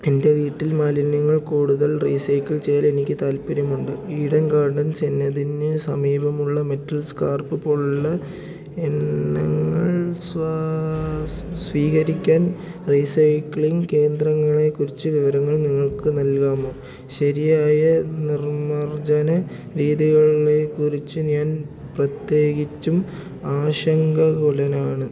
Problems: low volume